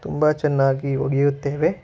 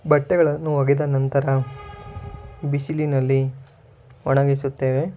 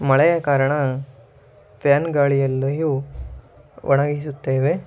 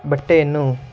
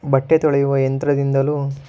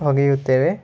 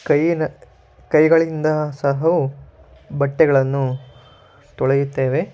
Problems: background sounds at intervals